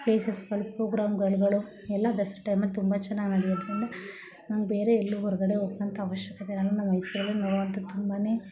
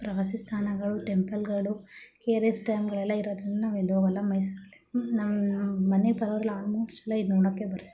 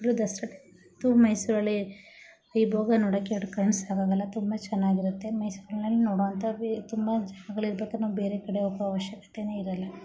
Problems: none marked